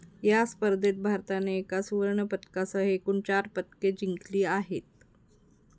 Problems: constant background noise